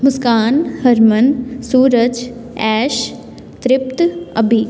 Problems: background sounds at intervals